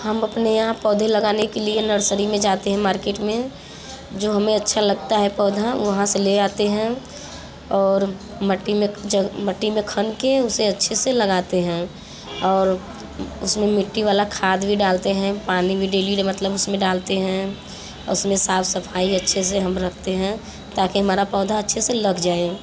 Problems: constant background noise, background conversations at intervals